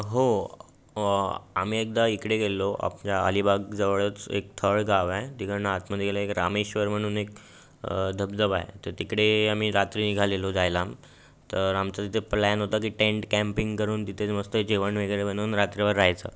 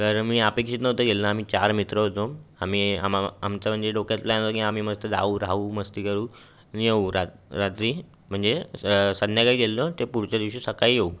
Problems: constant background noise